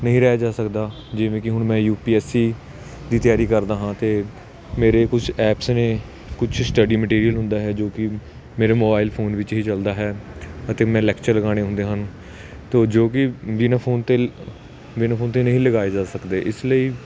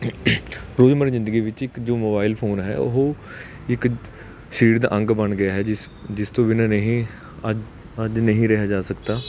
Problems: none marked